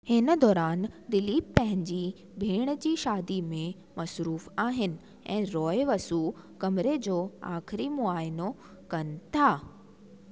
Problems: constant background noise